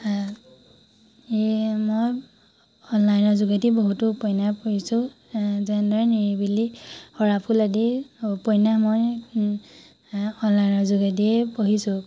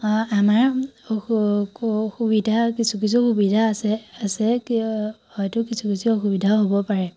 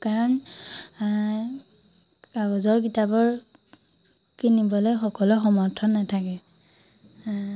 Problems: none marked